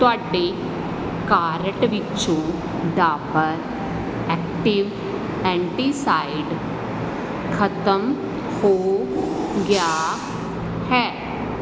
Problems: constant background noise